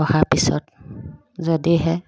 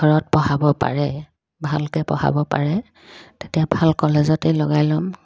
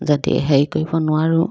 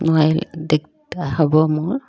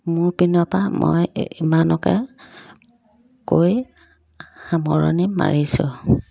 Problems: constant background noise